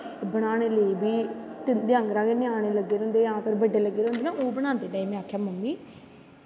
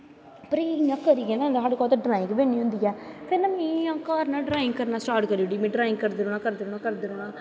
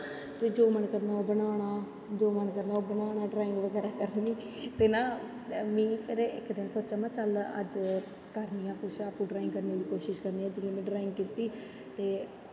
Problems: constant background noise, continuous background conversations